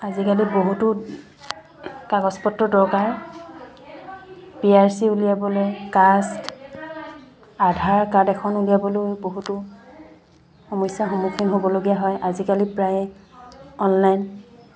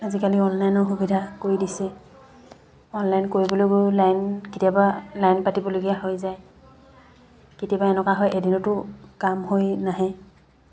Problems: constant background noise